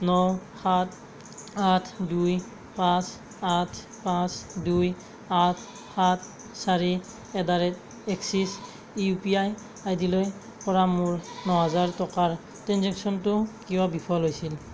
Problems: constant background noise